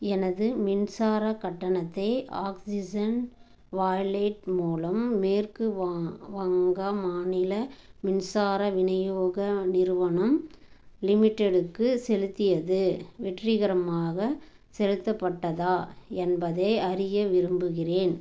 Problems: none marked